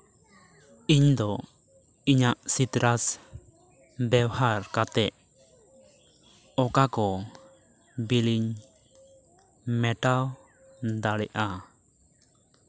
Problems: continuous background conversations